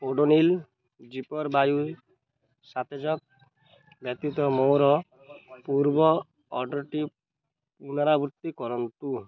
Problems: constant background noise, continuous background conversations